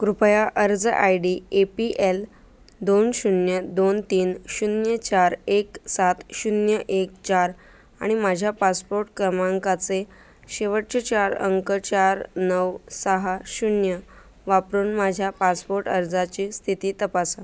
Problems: none marked